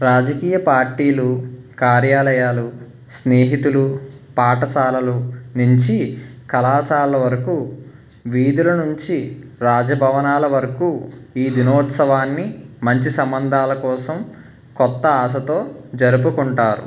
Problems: none marked